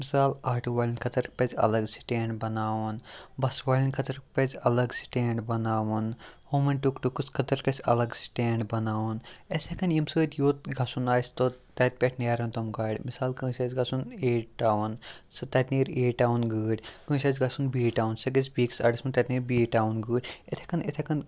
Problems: none marked